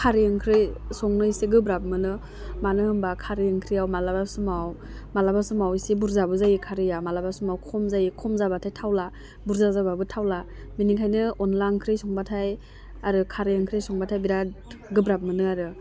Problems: constant background noise